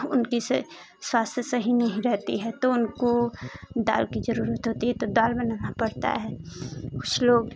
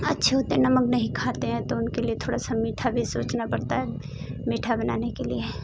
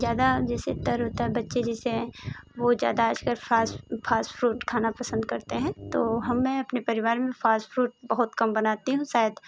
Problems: constant background noise